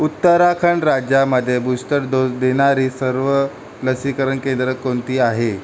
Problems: none marked